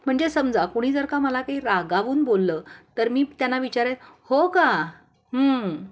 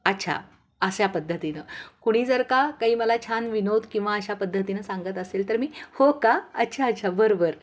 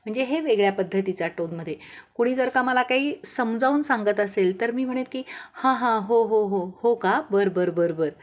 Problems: background sounds at intervals